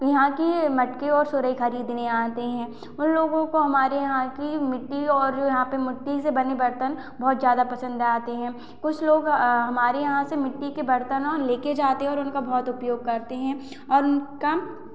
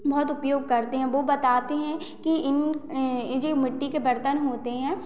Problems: constant background noise